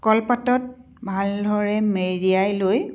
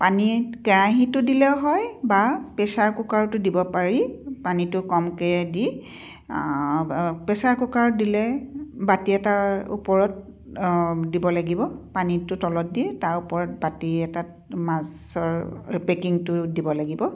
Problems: none marked